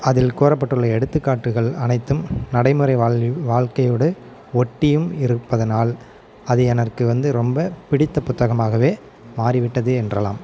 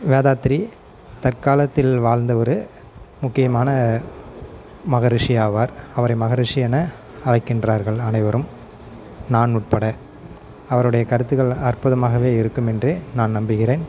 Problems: constant background noise